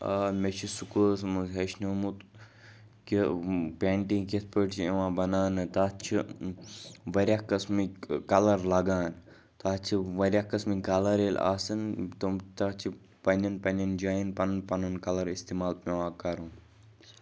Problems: background sounds at intervals, background conversations at intervals